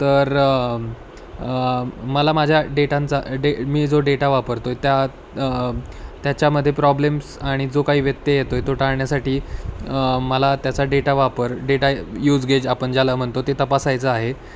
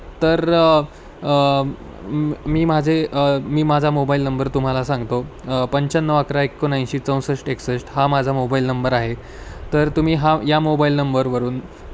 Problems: none marked